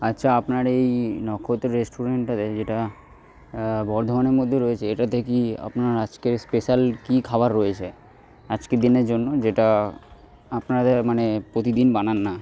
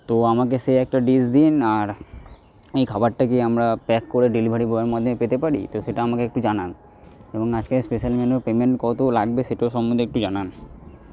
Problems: none marked